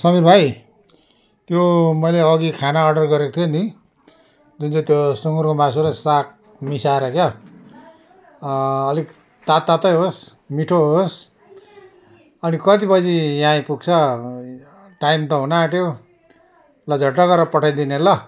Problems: constant background noise